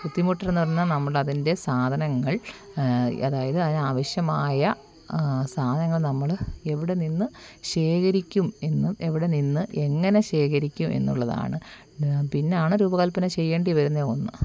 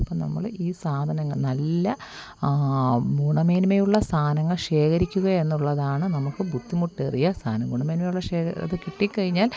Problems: constant background noise